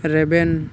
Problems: constant background noise